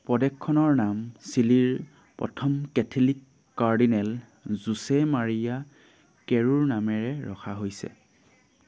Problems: constant background noise